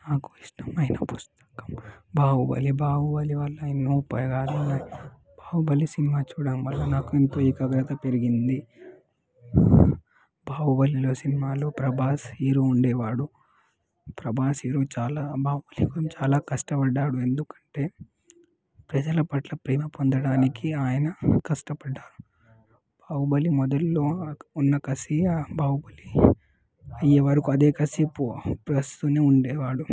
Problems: background sounds at intervals, background conversations at intervals, low volume